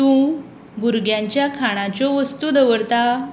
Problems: none marked